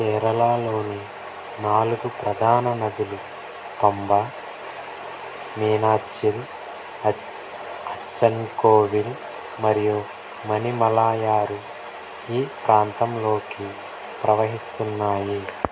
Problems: constant background noise, low volume